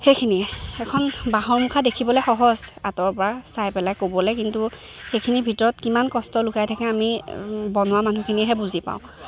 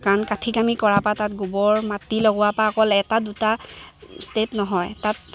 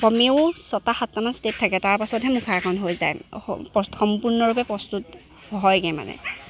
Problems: constant background noise, background conversations at intervals